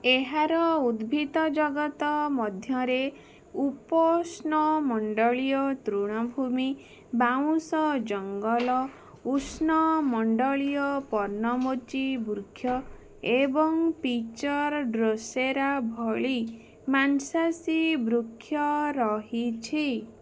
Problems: background sounds at intervals